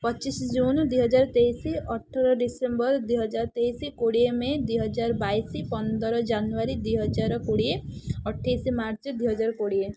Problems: none marked